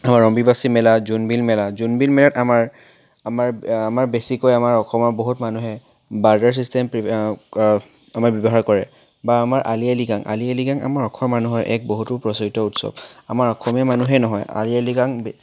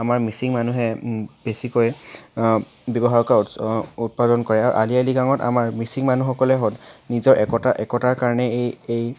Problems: background sounds at intervals